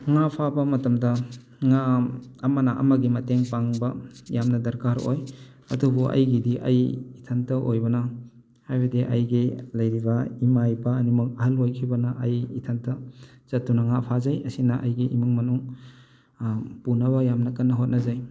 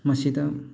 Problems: background sounds at intervals